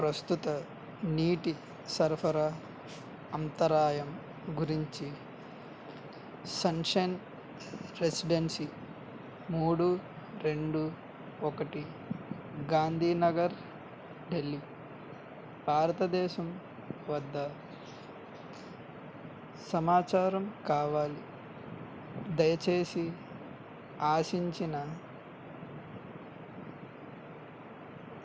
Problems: constant background noise, low volume